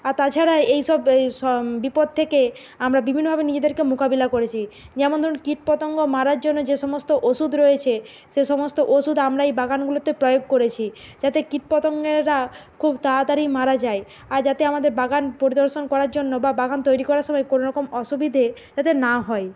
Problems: constant background noise